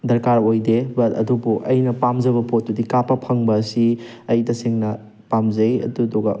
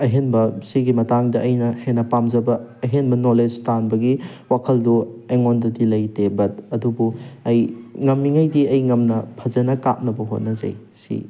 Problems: background sounds at intervals